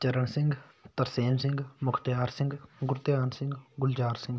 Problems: none marked